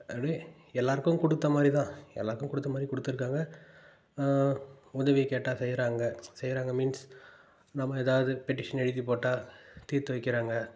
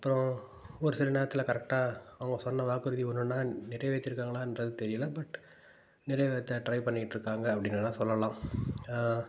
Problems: none marked